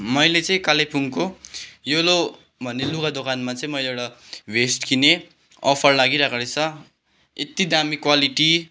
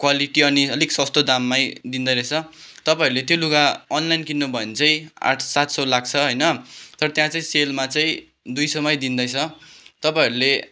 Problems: background sounds at intervals